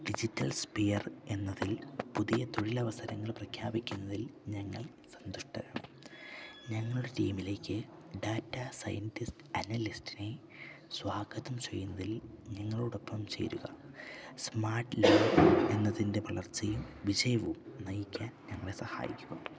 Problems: low volume